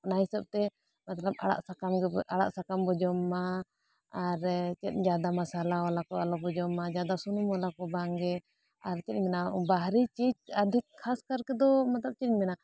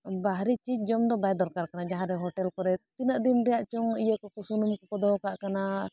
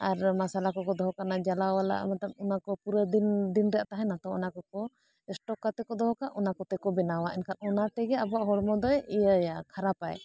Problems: none marked